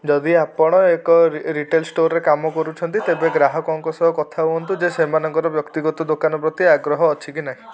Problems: constant background noise